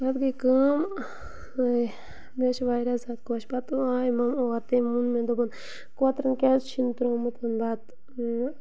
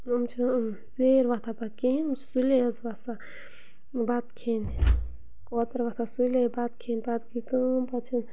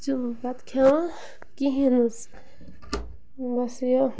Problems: none marked